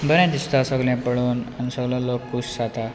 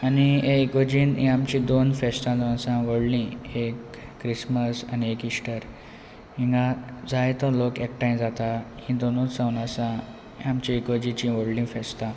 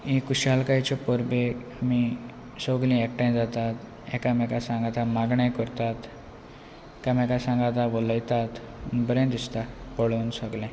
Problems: constant background noise